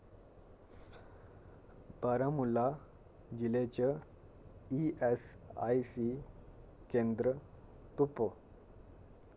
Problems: constant background noise